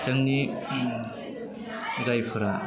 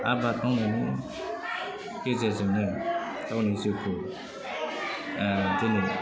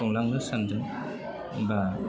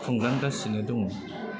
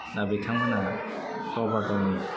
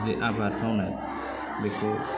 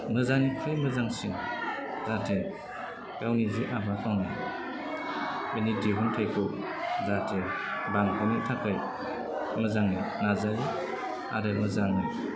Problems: constant background noise, low volume